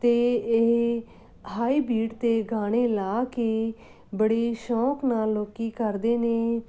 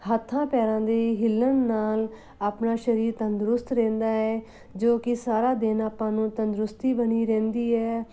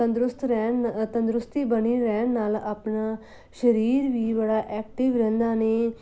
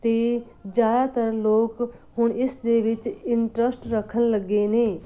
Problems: background sounds at intervals